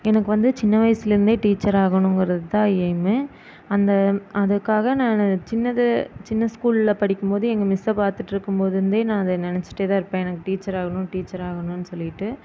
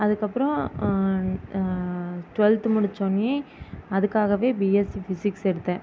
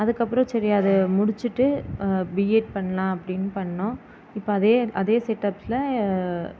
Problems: constant background noise